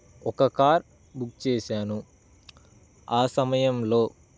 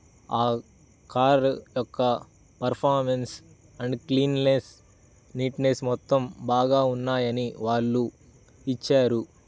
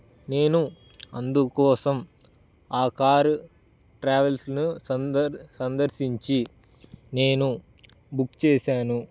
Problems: constant background noise